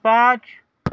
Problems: none marked